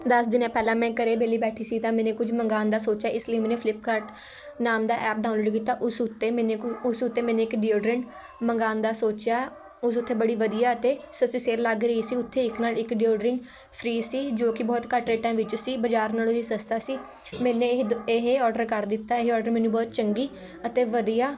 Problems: constant background noise